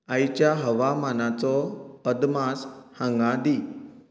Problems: constant background noise